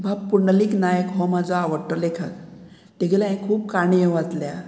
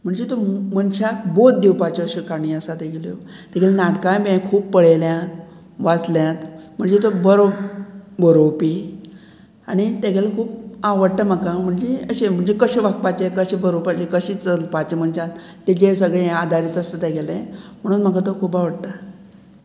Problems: background sounds at intervals